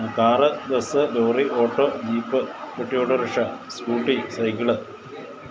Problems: constant background noise